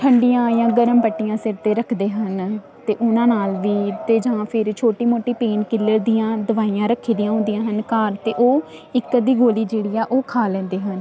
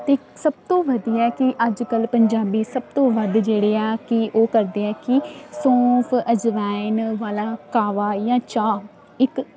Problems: none marked